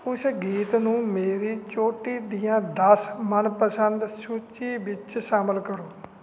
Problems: background sounds at intervals